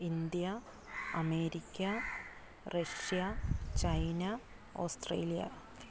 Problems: low volume